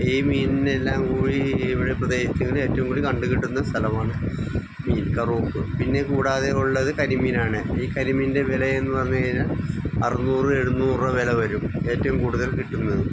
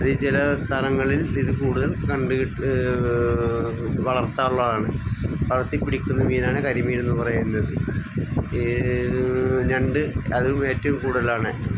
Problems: background sounds at intervals